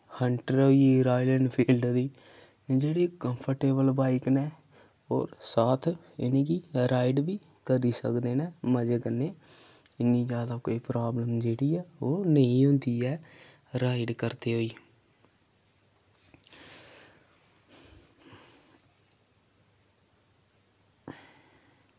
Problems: none marked